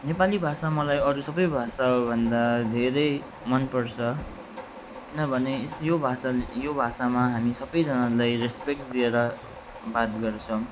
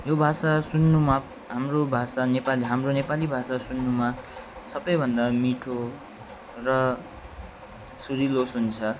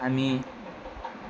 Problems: constant background noise